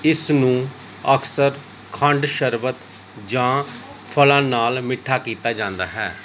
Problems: none marked